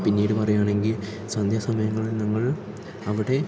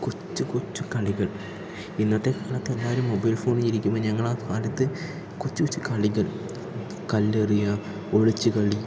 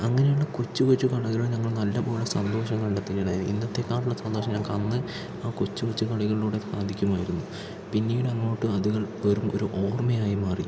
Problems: none marked